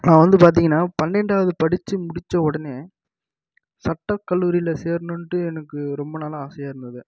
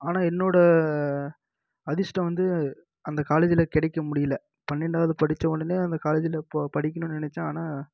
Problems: low volume